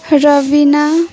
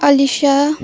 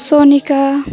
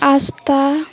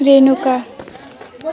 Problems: continuous background conversations